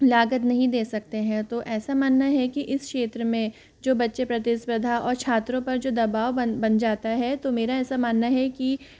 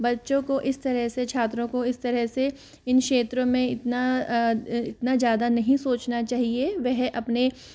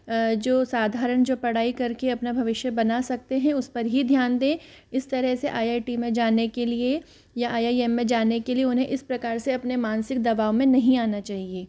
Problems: background sounds at intervals